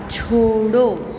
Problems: none marked